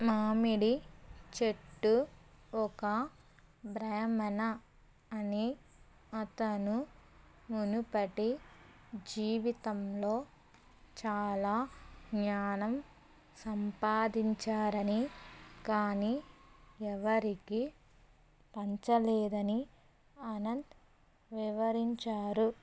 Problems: constant background noise